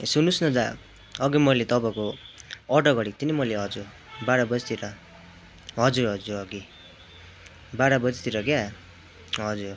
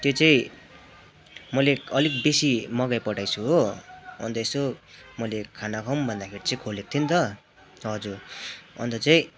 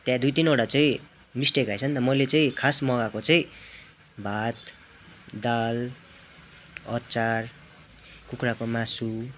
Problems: none marked